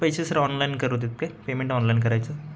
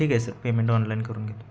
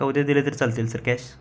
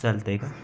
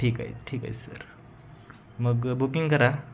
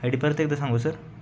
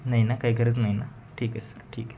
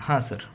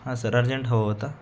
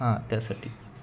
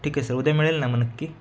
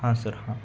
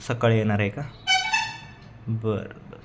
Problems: background sounds at intervals